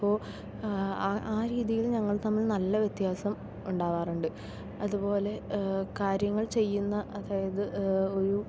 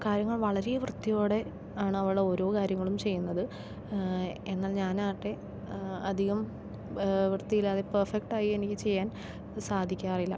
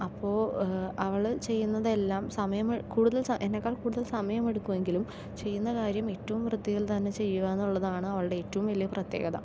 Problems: none marked